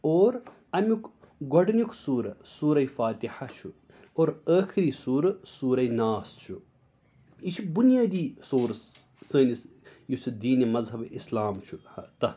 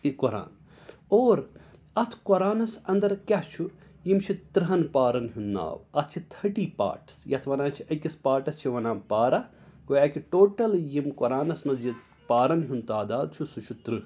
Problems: none marked